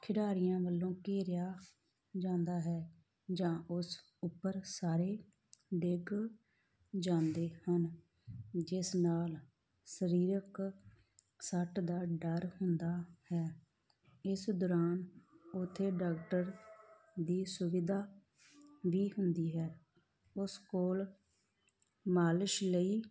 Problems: background sounds at intervals